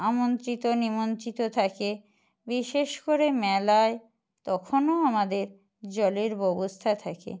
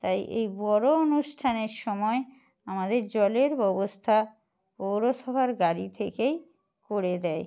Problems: none marked